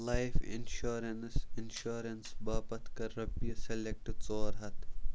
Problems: background sounds at intervals, low volume